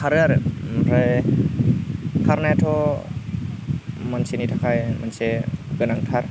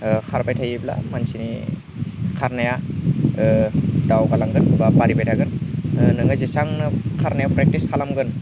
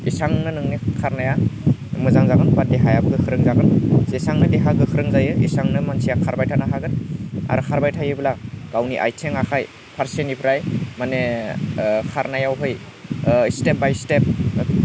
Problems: low volume